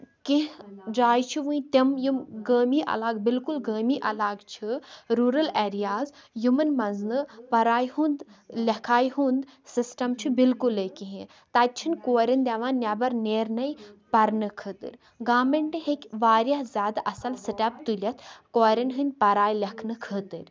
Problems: none marked